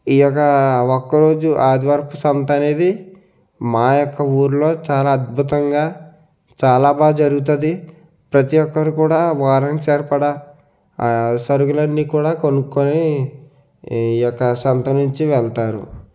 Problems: constant background noise